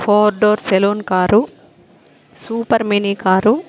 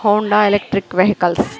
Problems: background conversations at intervals